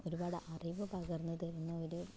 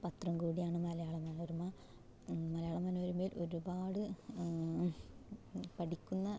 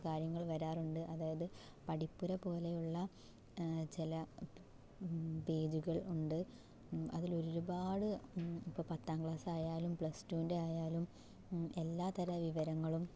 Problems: background sounds at intervals, low volume